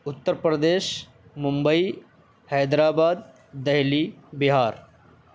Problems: constant background noise